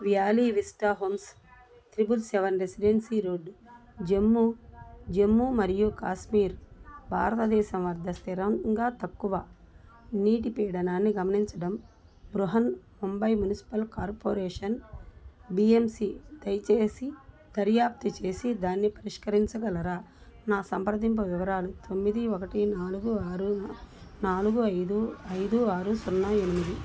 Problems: none marked